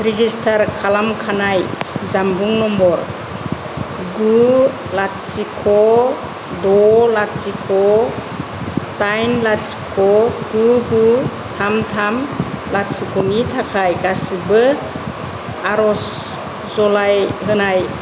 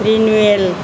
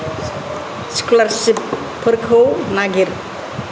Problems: constant background noise, low volume